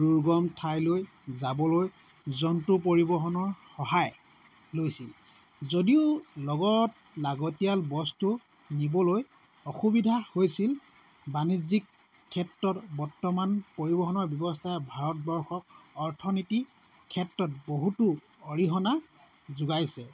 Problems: constant background noise